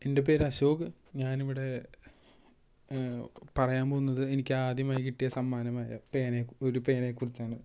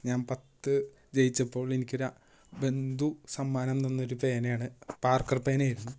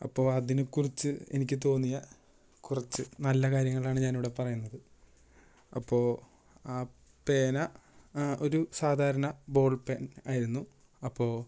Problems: none marked